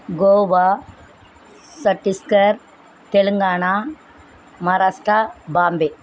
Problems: none marked